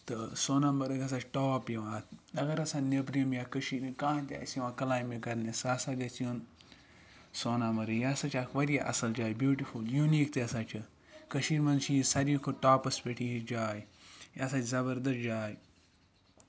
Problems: background sounds at intervals